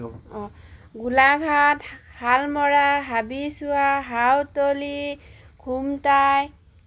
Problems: background sounds at intervals